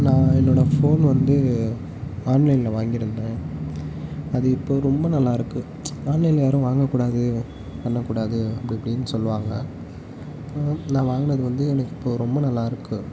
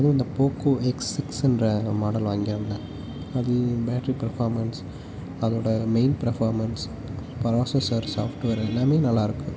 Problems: none marked